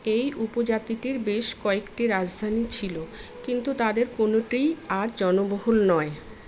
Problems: constant background noise